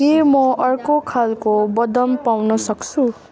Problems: continuous background conversations